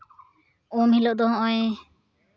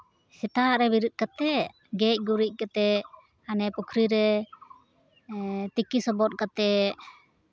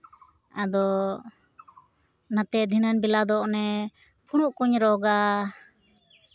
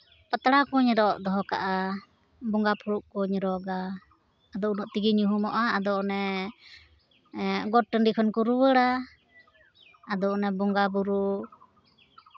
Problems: constant background noise, background conversations at intervals